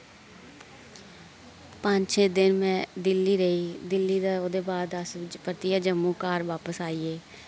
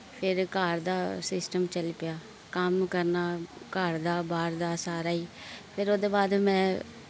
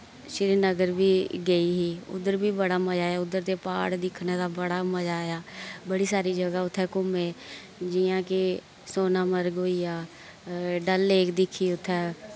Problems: constant background noise